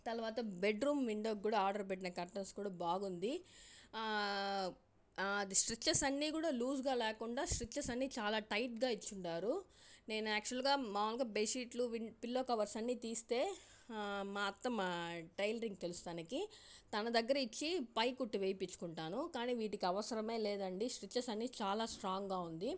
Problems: low volume